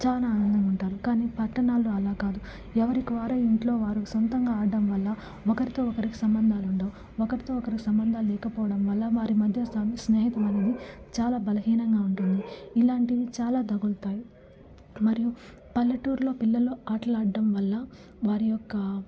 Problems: background sounds at intervals, low volume